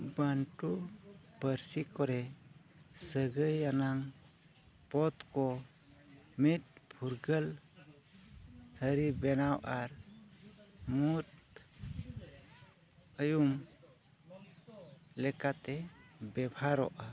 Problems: none marked